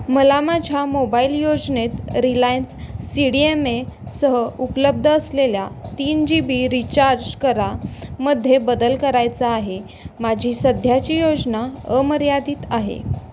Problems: none marked